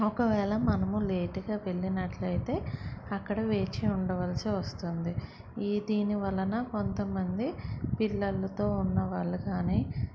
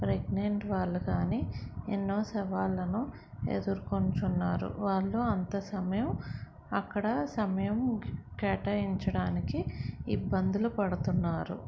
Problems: none marked